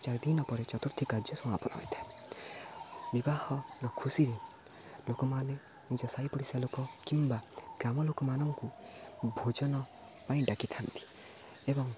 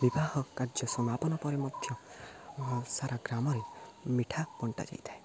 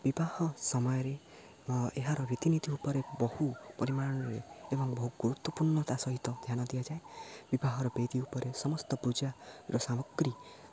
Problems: low volume